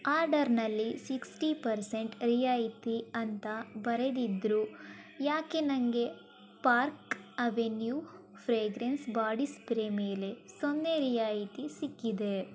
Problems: background sounds at intervals